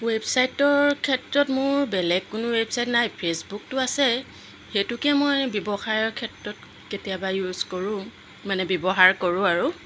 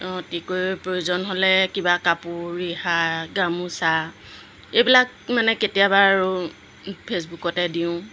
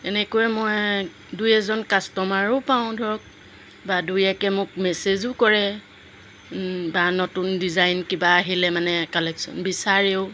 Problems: none marked